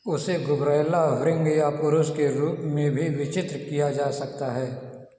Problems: background sounds at intervals, echo